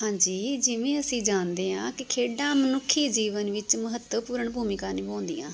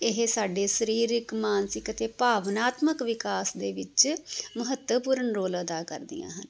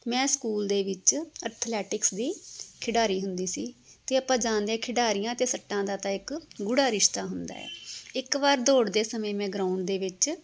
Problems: none marked